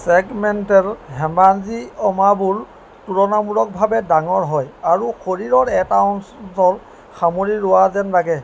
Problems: none marked